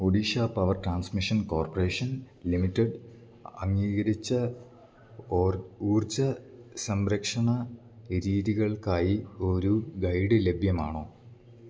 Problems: none marked